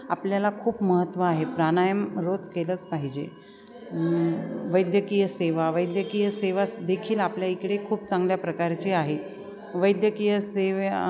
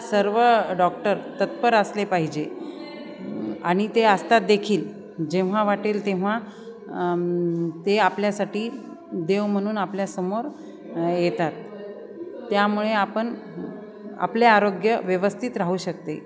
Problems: constant background noise, continuous background conversations